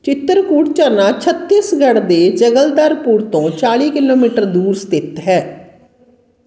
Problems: background sounds at intervals, background conversations at intervals